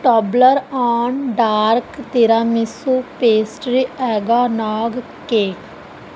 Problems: background sounds at intervals